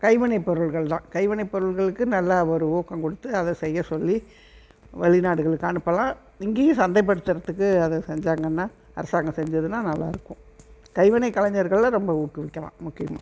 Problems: none marked